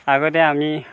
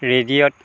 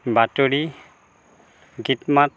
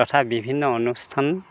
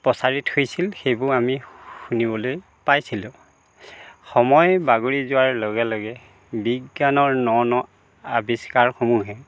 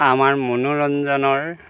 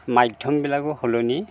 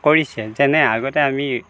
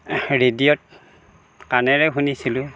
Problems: constant background noise